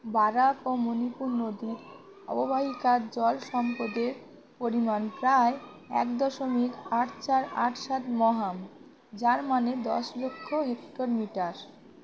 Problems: constant background noise, continuous background conversations